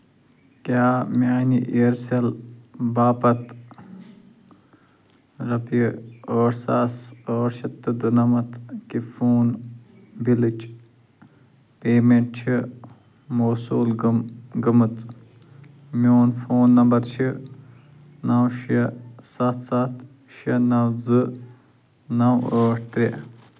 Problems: none marked